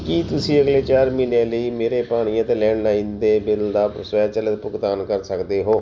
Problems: background sounds at intervals